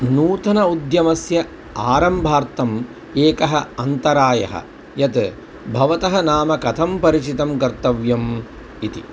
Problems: constant background noise